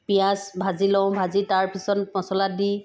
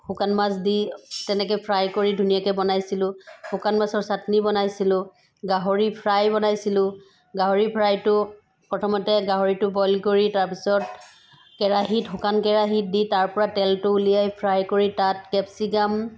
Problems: none marked